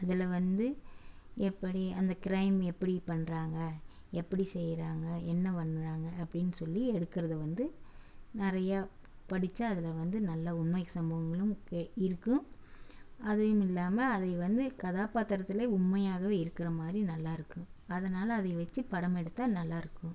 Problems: none marked